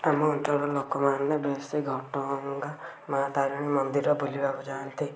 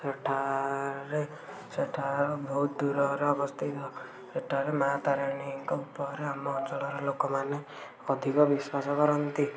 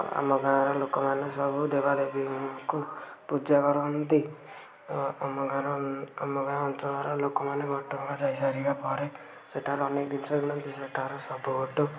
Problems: constant background noise